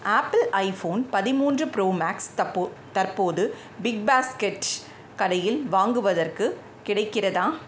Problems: background sounds at intervals